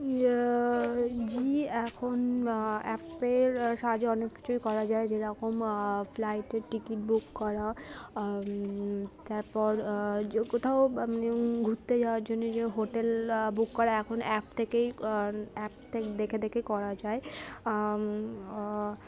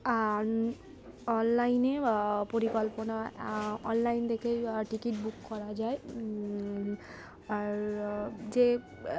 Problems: constant background noise, continuous background conversations